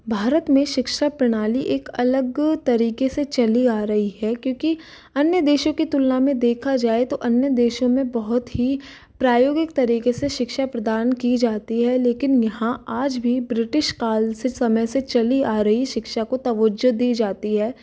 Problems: none marked